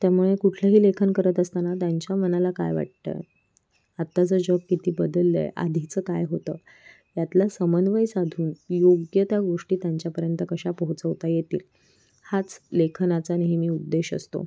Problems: background sounds at intervals